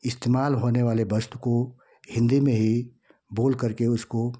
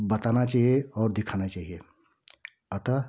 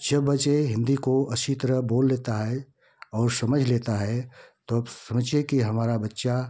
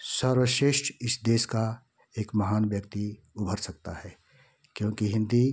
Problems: none marked